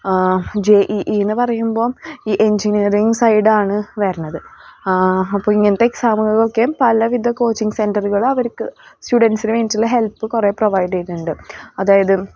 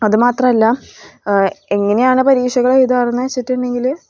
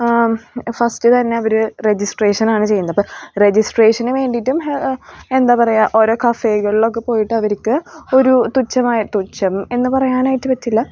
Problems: none marked